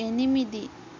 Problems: constant background noise